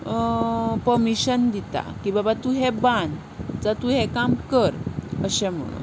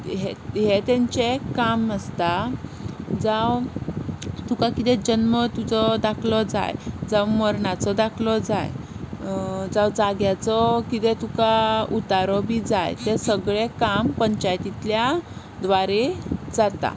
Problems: constant background noise